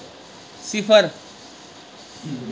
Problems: constant background noise